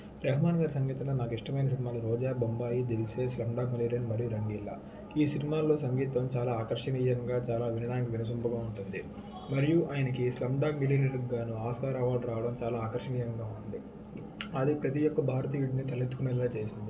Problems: background sounds at intervals